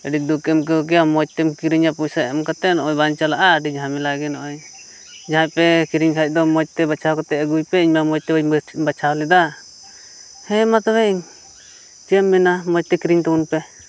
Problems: background sounds at intervals